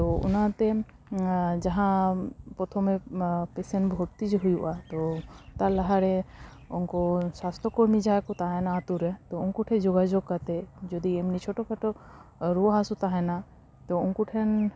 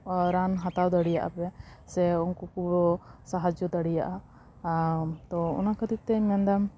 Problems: background sounds at intervals